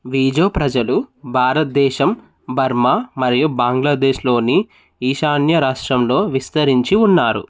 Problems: none marked